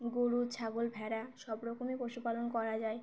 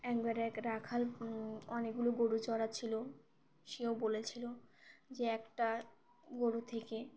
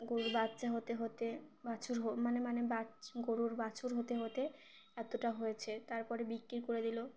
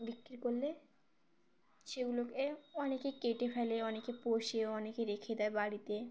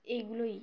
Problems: none marked